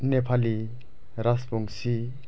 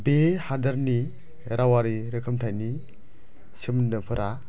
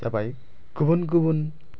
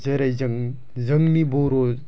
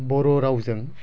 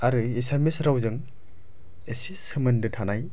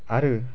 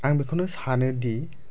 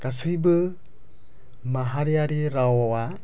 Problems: low volume